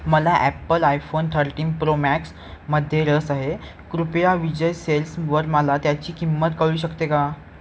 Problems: background sounds at intervals